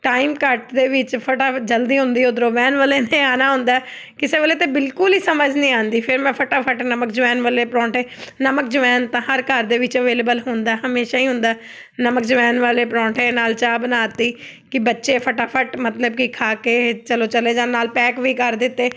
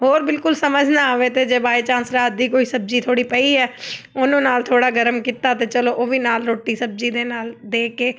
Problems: background sounds at intervals